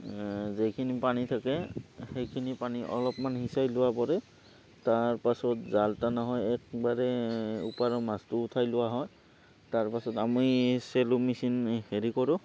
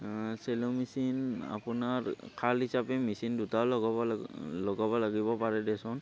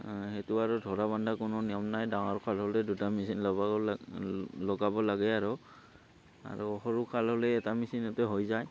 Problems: constant background noise